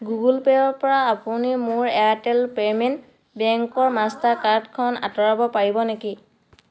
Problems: background conversations at intervals